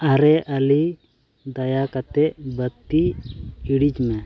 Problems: background sounds at intervals